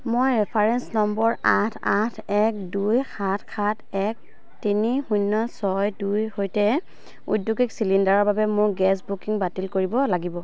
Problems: none marked